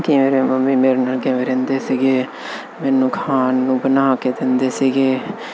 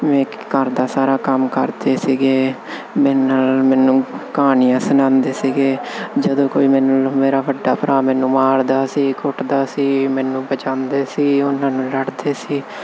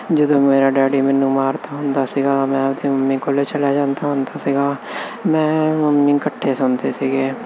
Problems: constant background noise